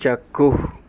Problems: constant background noise